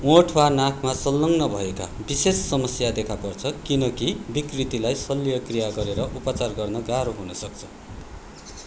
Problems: constant background noise